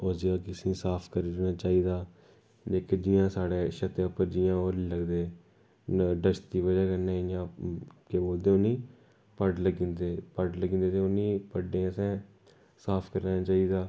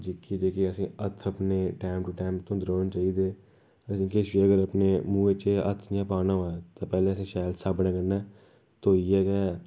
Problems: background sounds at intervals